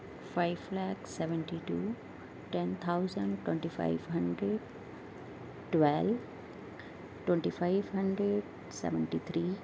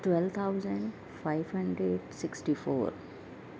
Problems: constant background noise